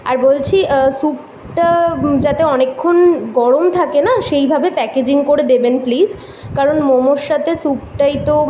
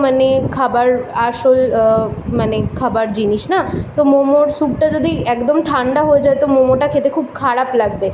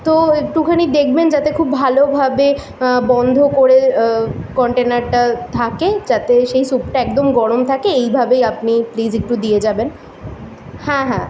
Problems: constant background noise, background conversations at intervals